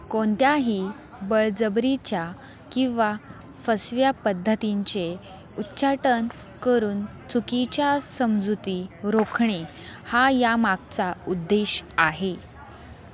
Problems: constant background noise, continuous background conversations